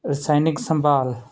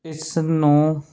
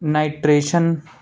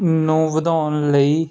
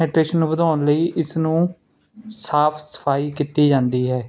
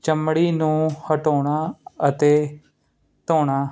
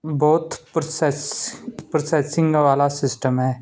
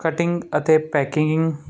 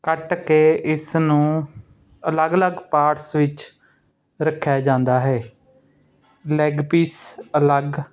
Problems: none marked